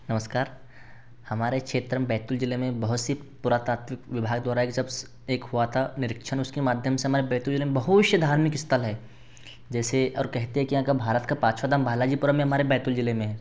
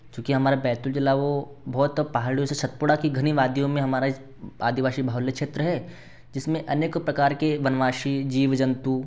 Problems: none marked